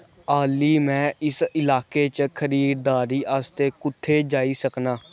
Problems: none marked